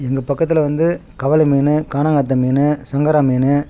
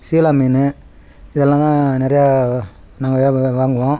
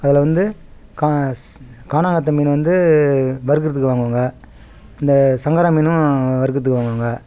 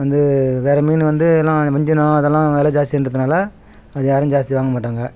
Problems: none marked